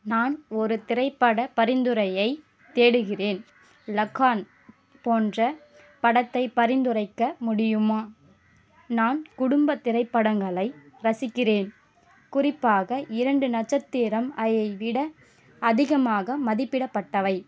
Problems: none marked